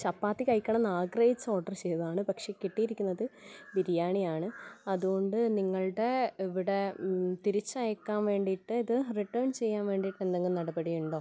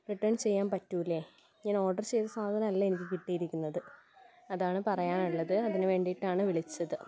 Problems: none marked